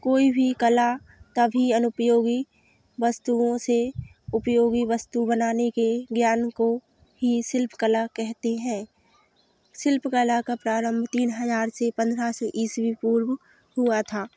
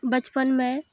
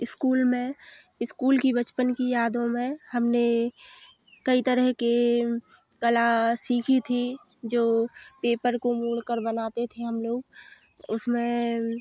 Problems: none marked